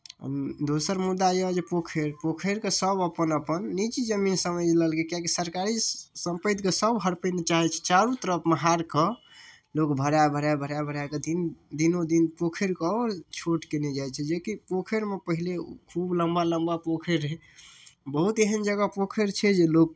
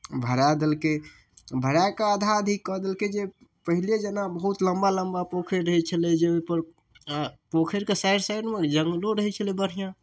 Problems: none marked